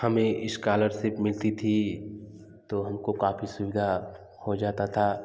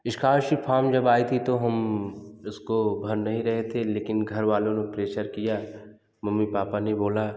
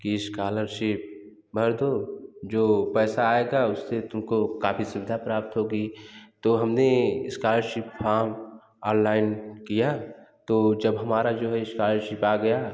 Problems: background sounds at intervals, echo